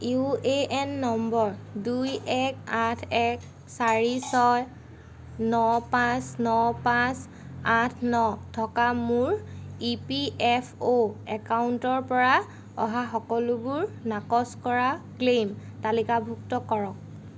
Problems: background sounds at intervals, background conversations at intervals